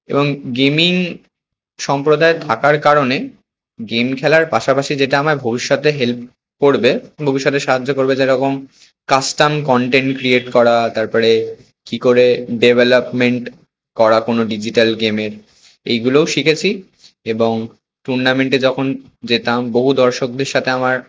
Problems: constant background noise